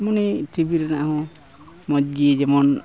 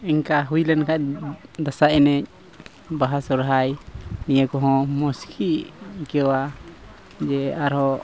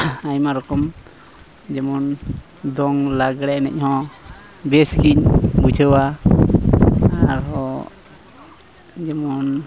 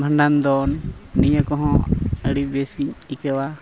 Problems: constant background noise, background conversations at intervals